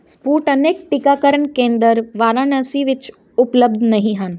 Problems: constant background noise